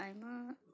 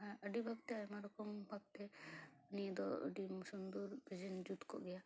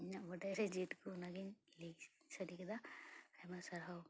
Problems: background sounds at intervals, low volume